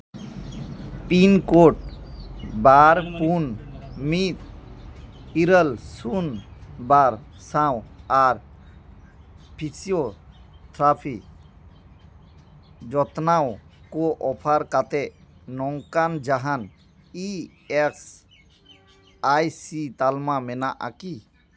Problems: constant background noise, background conversations at intervals